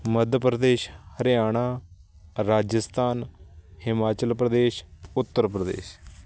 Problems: none marked